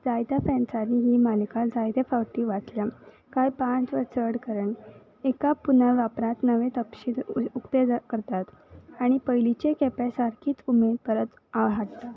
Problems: background sounds at intervals